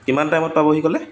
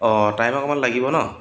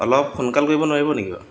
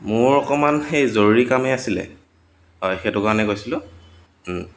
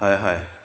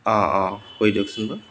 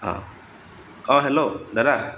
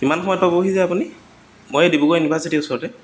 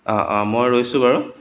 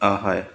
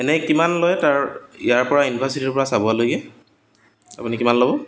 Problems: constant background noise, background conversations at intervals